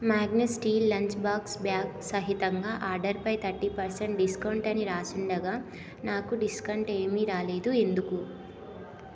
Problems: none marked